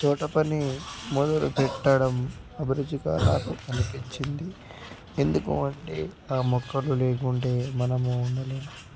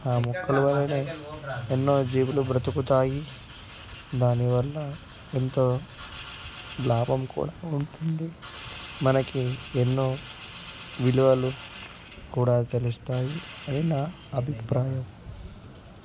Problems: background conversations at intervals, low volume